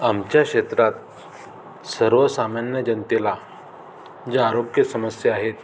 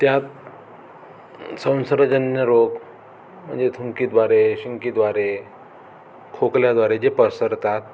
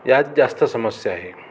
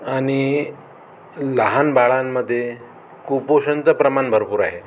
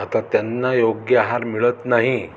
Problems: none marked